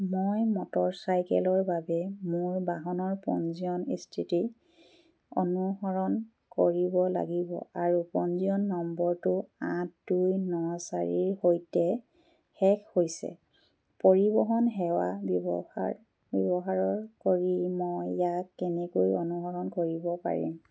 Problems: none marked